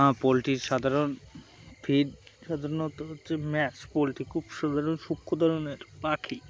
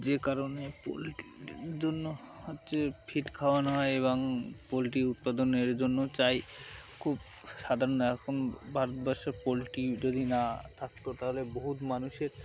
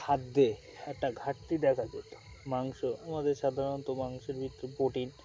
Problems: constant background noise, background conversations at intervals